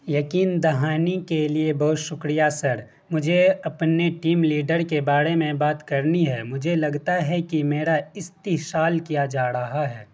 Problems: constant background noise